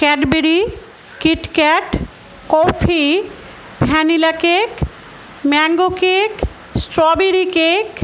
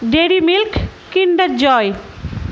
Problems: background sounds at intervals